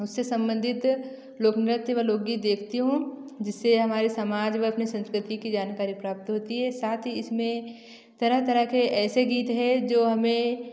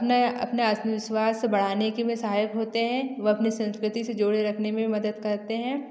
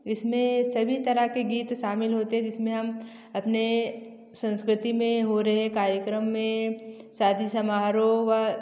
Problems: none marked